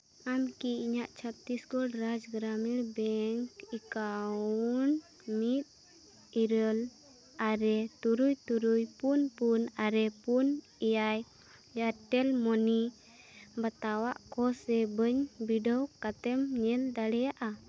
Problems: constant background noise